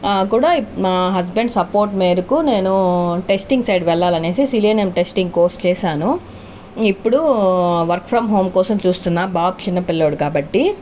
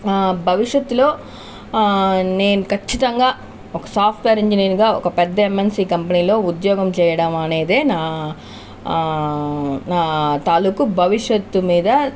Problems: constant background noise